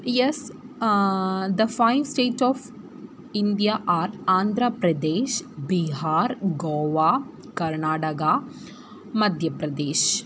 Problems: constant background noise